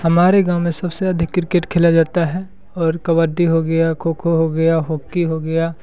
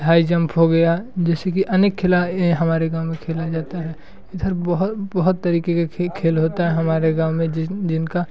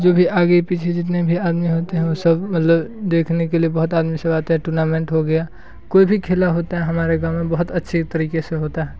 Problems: constant background noise